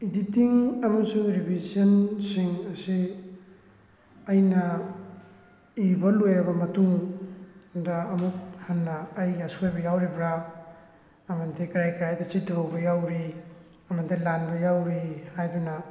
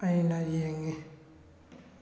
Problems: constant background noise